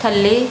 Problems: none marked